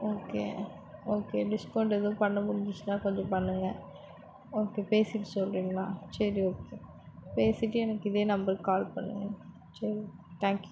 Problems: constant background noise